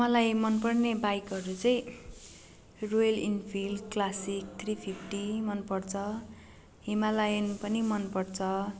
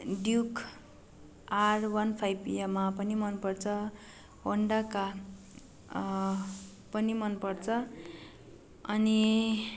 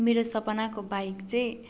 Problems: none marked